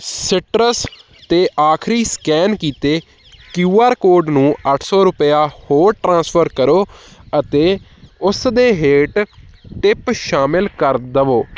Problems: background sounds at intervals